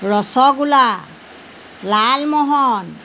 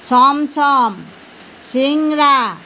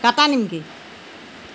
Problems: constant background noise